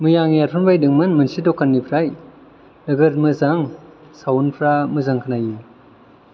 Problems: low volume